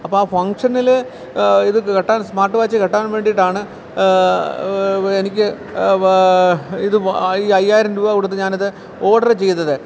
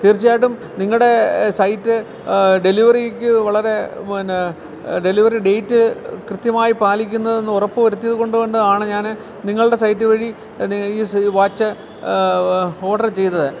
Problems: constant background noise